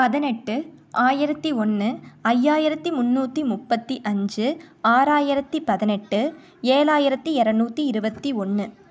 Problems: none marked